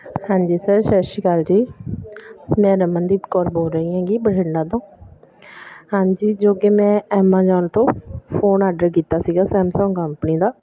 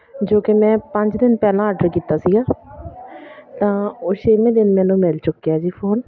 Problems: none marked